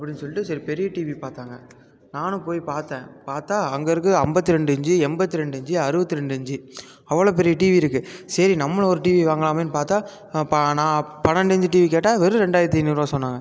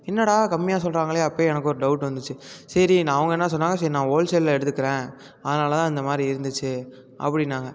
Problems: none marked